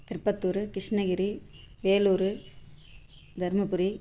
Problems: constant background noise